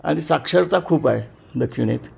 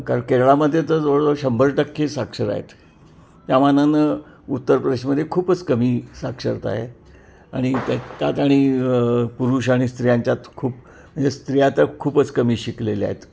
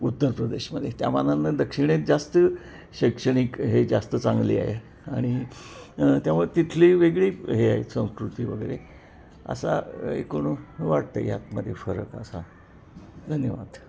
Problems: constant background noise, background conversations at intervals